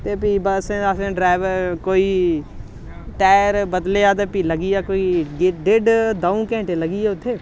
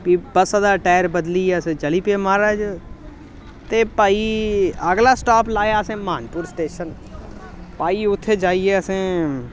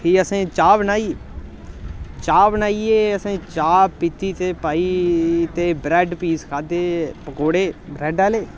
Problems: none marked